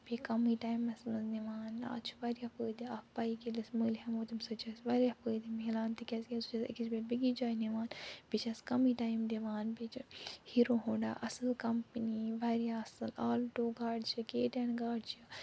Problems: none marked